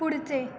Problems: continuous background conversations